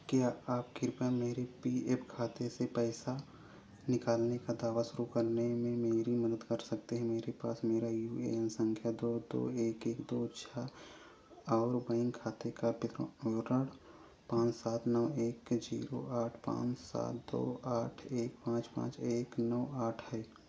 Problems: constant background noise